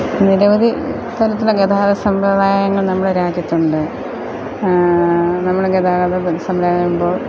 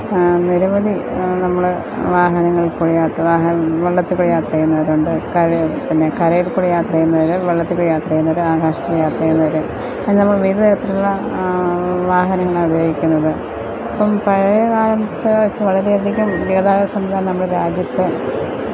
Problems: none marked